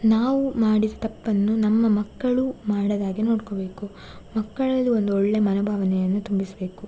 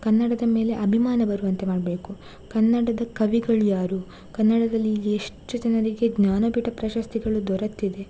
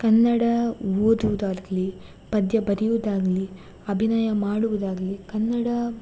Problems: none marked